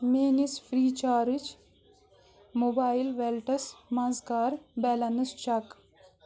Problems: constant background noise